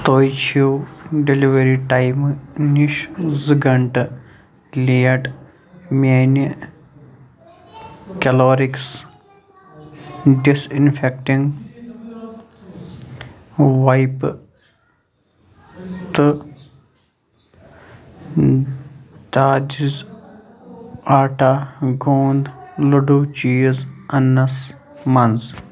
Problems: constant background noise, continuous background conversations